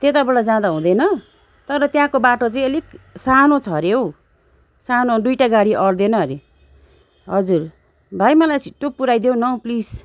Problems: background sounds at intervals